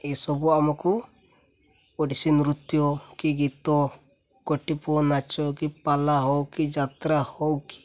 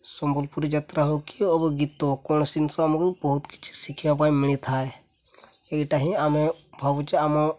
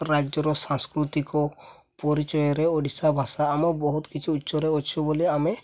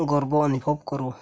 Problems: none marked